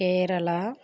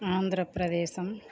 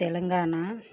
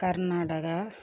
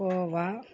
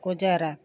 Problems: low volume